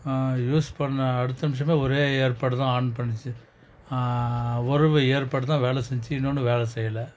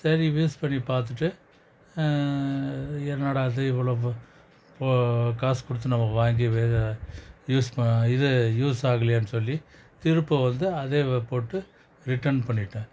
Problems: none marked